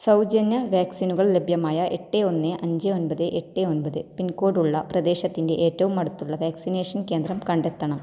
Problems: low volume